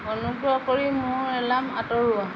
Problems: constant background noise